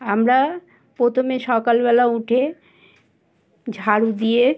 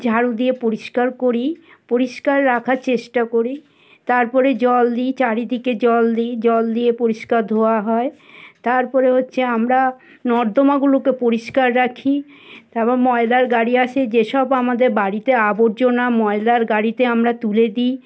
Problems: constant background noise, background conversations at intervals